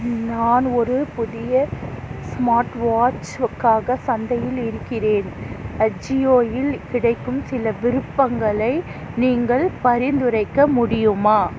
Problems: constant background noise